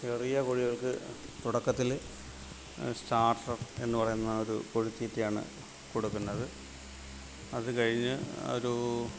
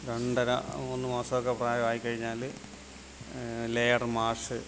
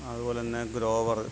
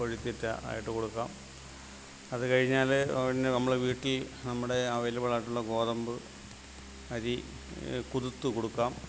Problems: none marked